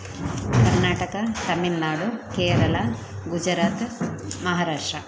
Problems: constant background noise